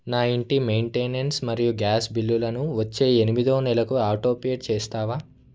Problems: none marked